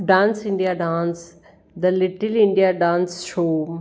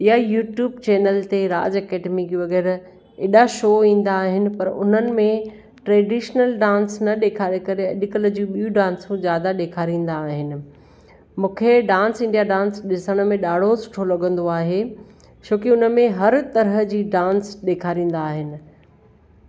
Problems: none marked